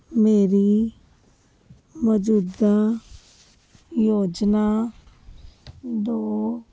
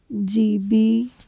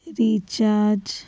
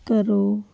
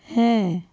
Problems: none marked